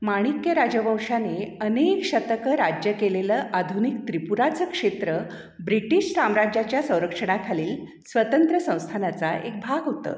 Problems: background sounds at intervals